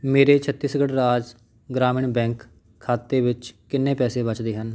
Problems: none marked